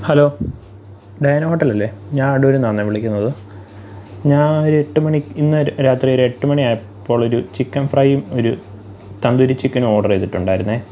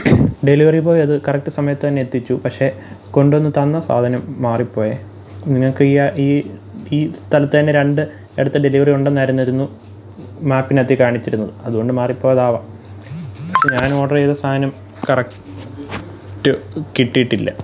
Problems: none marked